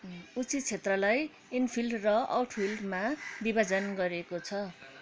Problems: constant background noise, background conversations at intervals